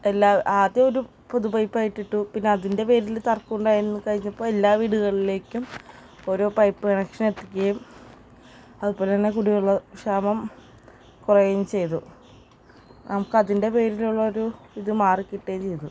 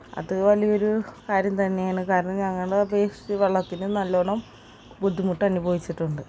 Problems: constant background noise